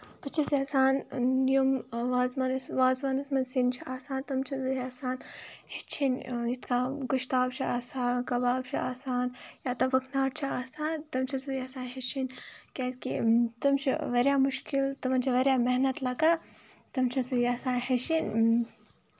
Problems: none marked